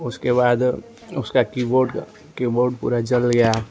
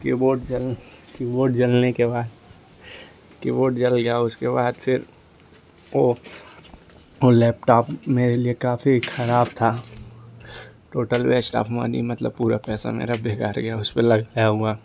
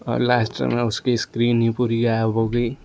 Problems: constant background noise